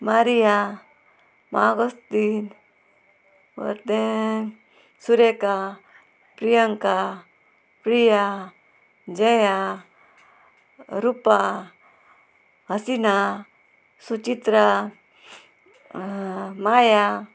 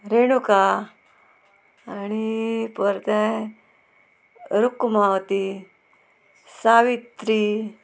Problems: constant background noise